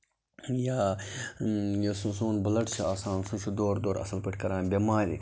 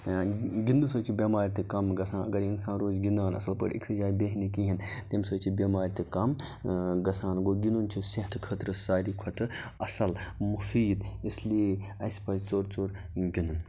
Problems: constant background noise